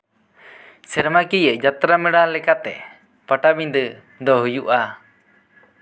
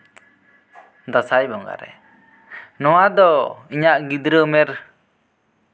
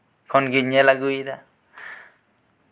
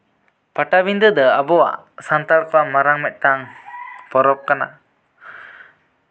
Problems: background sounds at intervals